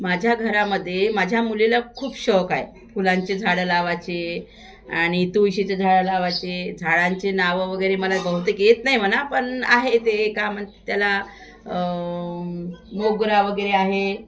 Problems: constant background noise, continuous background conversations